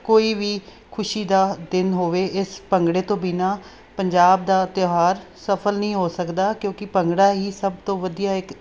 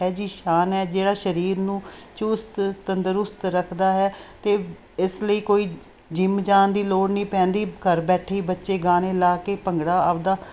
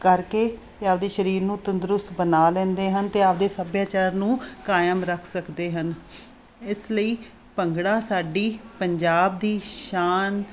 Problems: none marked